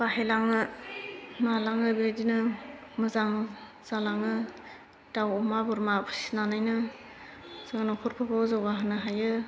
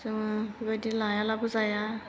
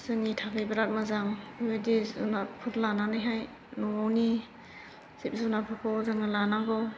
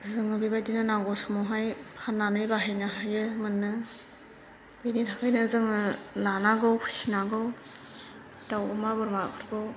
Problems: constant background noise